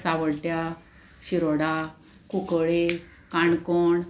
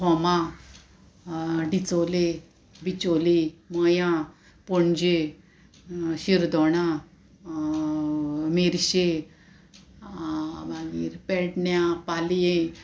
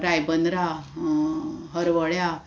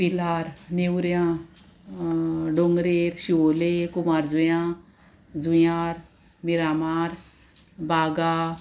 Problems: constant background noise